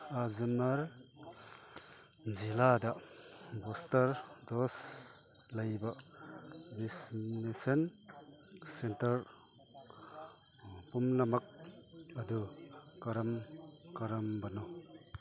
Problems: background conversations at intervals